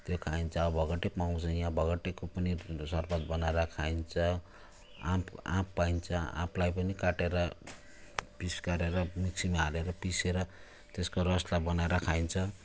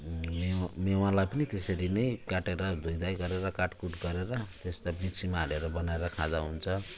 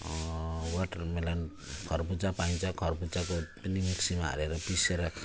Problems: constant background noise